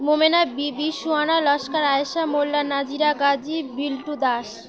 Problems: none marked